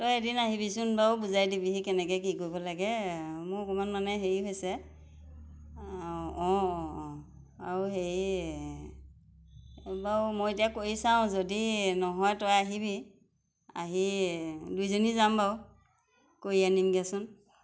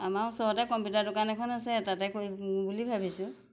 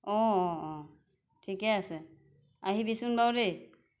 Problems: constant background noise